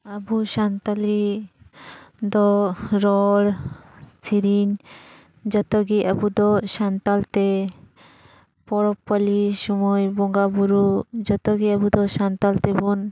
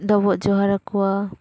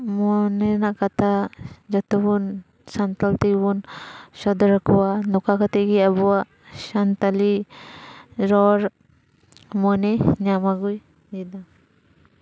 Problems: background sounds at intervals